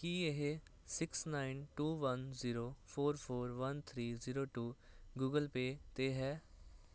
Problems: constant background noise